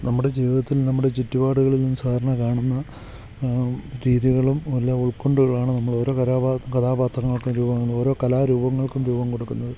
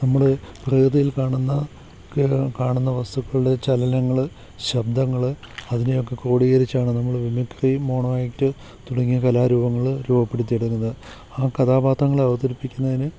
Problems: none marked